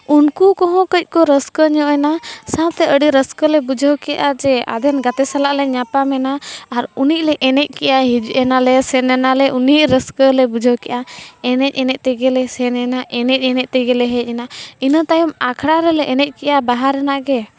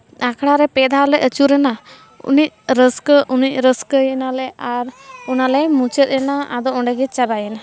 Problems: background conversations at intervals